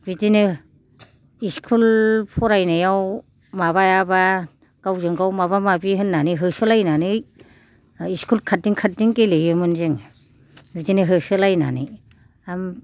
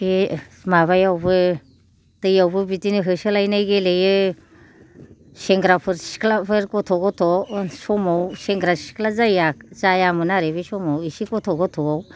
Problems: none marked